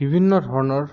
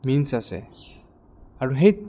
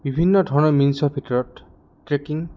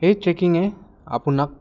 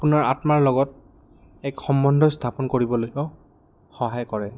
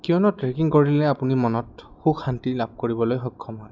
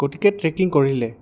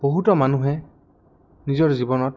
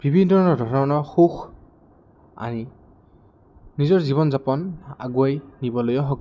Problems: background sounds at intervals